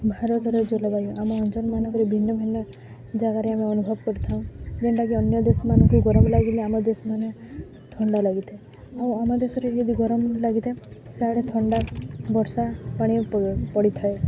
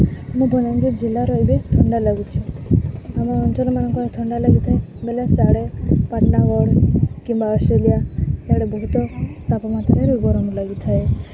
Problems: constant background noise, continuous background conversations